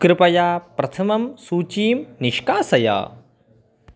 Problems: none marked